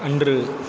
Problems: background sounds at intervals